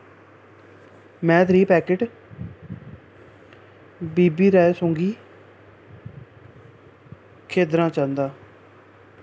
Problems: constant background noise